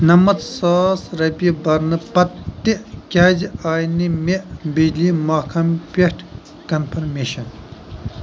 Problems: constant background noise